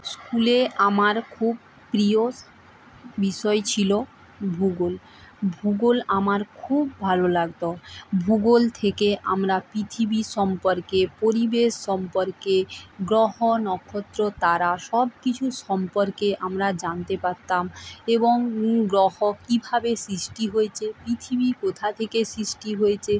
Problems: background sounds at intervals, background conversations at intervals